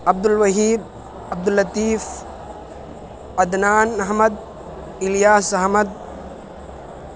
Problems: constant background noise